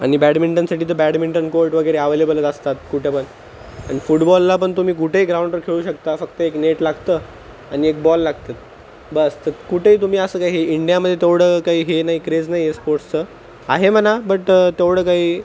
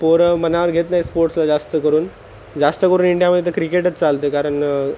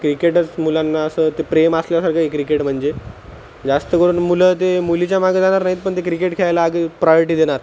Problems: constant background noise